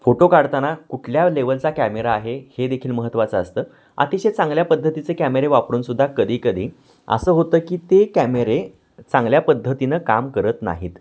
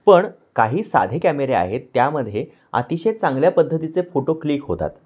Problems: background sounds at intervals